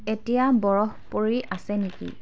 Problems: background sounds at intervals